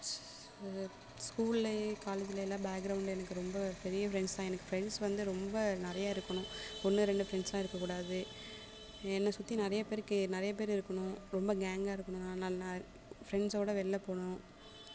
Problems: constant background noise, background conversations at intervals